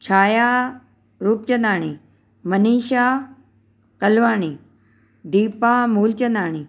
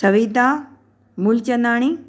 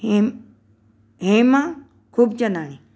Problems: none marked